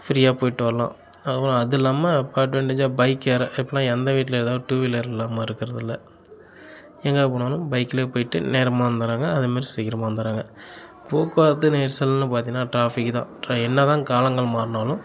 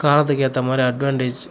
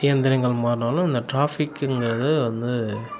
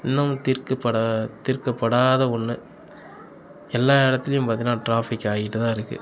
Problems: constant background noise